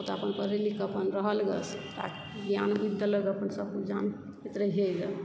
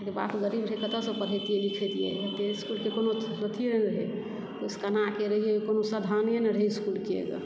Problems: background sounds at intervals